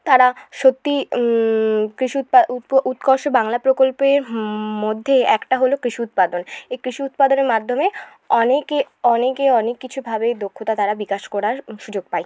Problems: none marked